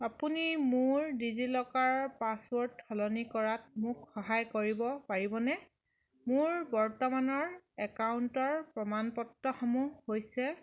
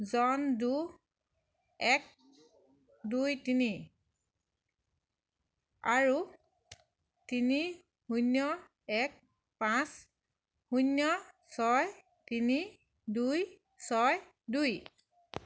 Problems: none marked